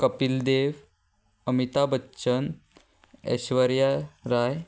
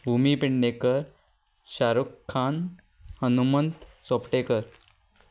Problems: background conversations at intervals